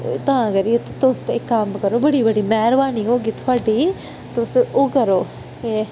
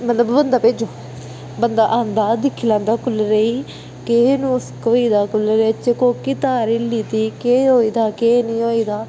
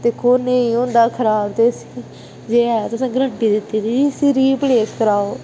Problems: none marked